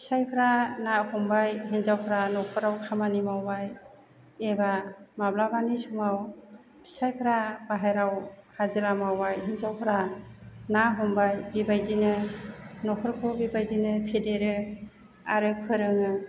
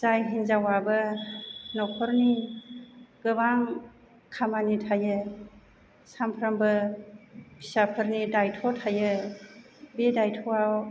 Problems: low volume